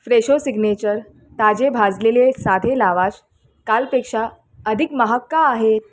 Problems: constant background noise